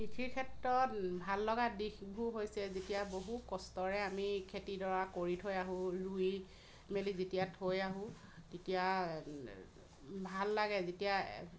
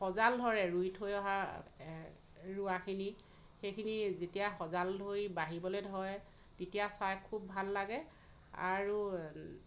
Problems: none marked